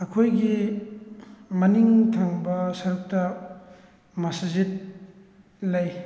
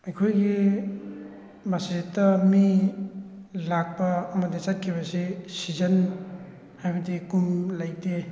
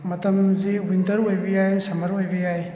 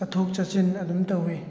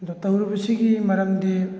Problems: background conversations at intervals